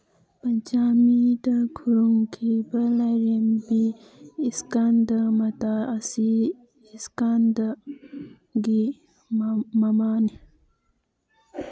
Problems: background sounds at intervals